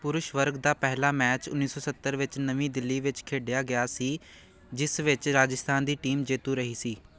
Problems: none marked